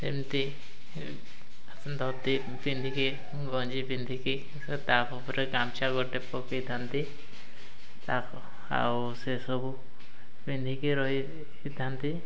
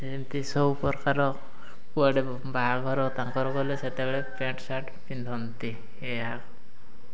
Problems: none marked